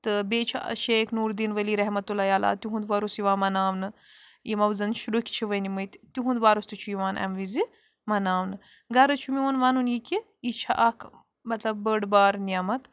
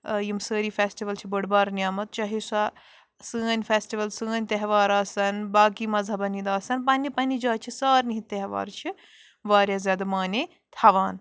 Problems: background sounds at intervals